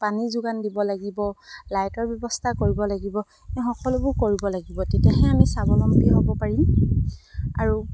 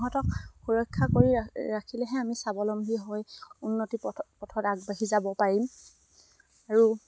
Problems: none marked